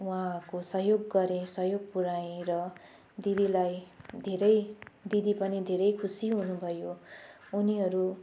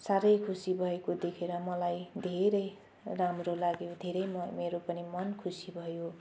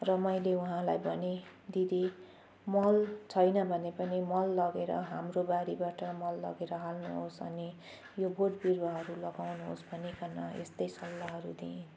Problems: background sounds at intervals